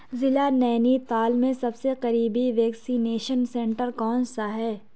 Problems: none marked